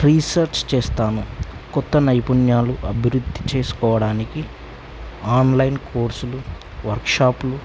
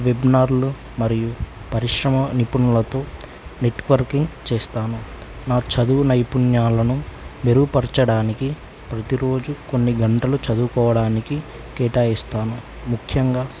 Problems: constant background noise